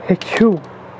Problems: constant background noise